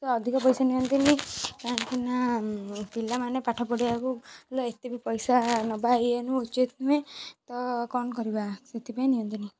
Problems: background sounds at intervals